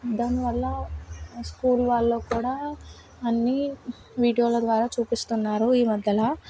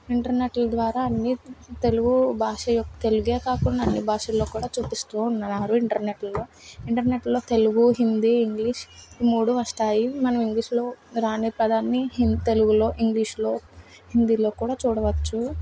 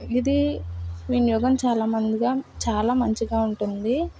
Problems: background sounds at intervals